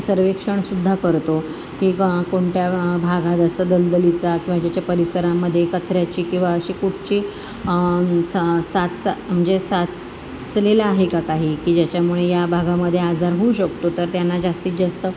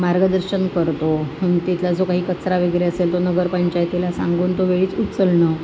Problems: constant background noise